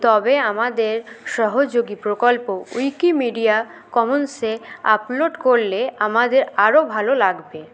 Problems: none marked